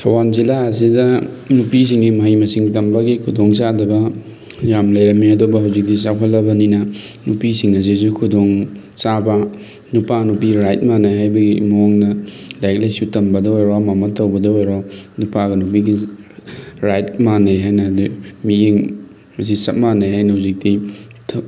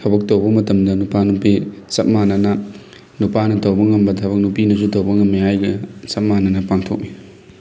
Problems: background sounds at intervals